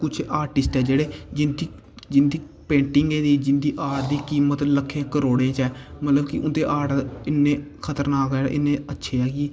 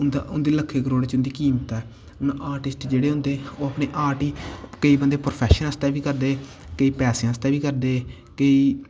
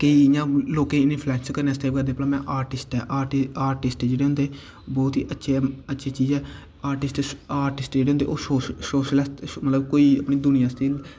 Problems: constant background noise